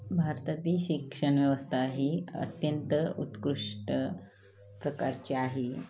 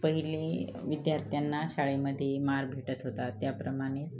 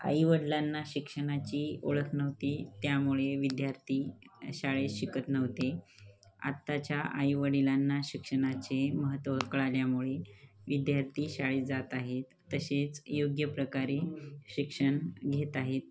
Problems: constant background noise, continuous background conversations